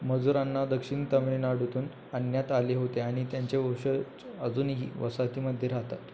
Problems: constant background noise